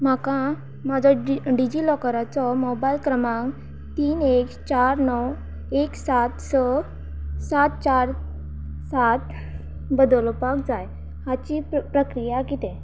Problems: none marked